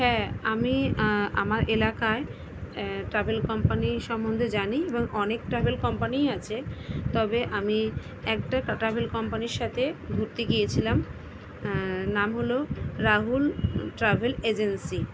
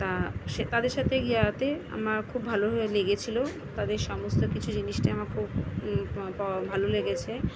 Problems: constant background noise, continuous background conversations